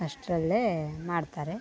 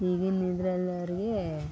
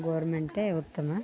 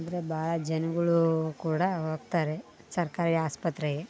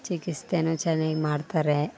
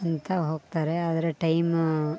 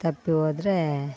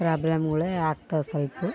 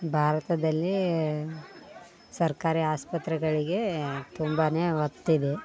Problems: background sounds at intervals